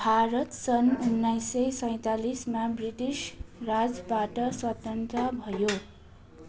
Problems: constant background noise